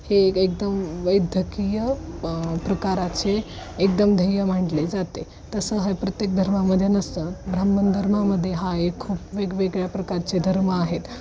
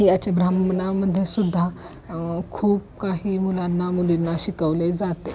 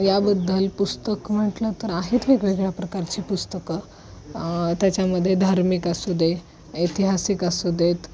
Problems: constant background noise, background conversations at intervals